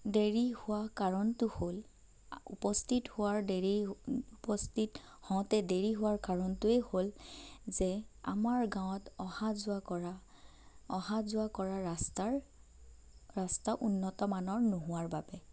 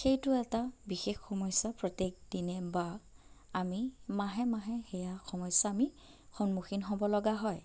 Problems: none marked